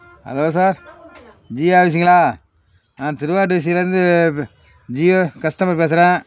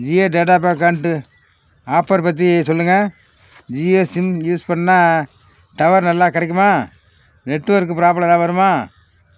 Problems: constant background noise